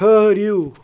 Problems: background sounds at intervals